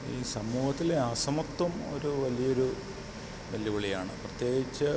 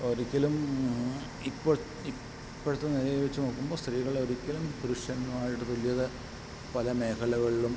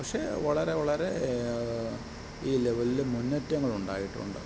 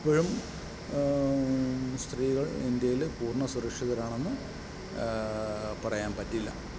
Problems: constant background noise, low volume